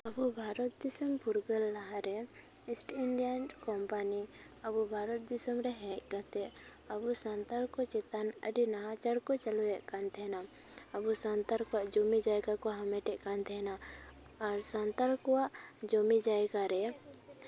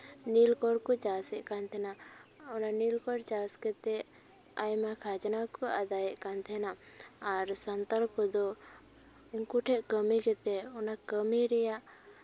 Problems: background conversations at intervals